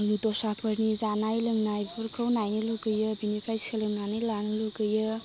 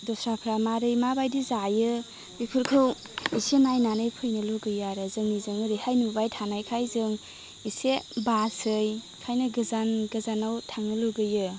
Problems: none marked